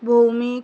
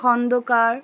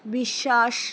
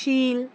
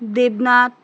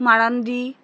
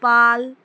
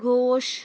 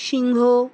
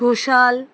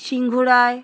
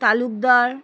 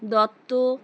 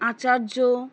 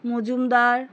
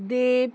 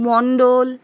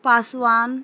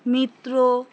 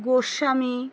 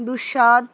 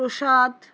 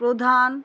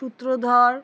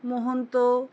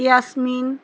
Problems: none marked